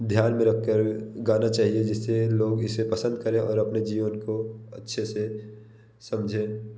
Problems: none marked